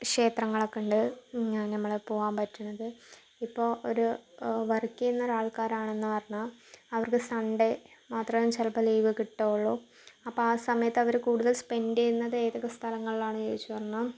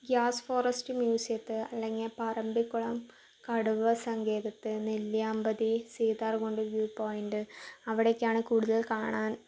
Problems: low volume